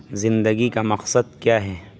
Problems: constant background noise